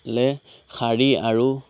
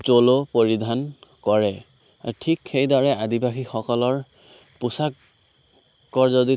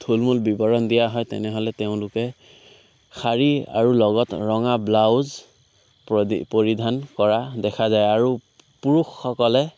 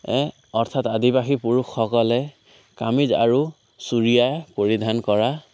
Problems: constant background noise, background conversations at intervals